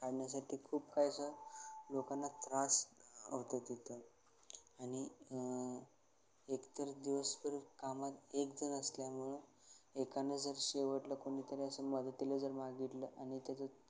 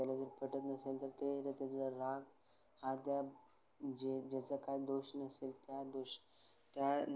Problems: none marked